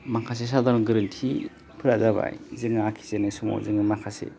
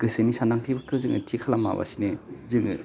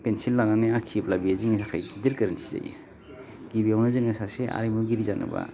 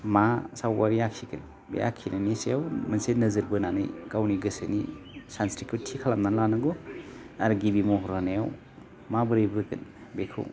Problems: none marked